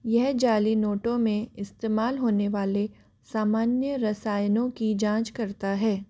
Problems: constant background noise